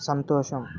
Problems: none marked